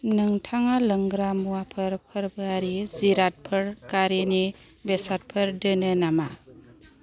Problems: background conversations at intervals